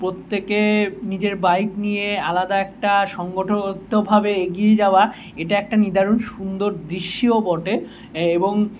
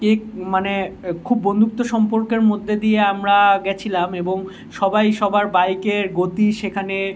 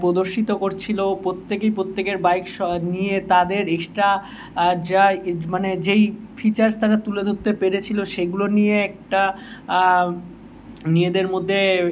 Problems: none marked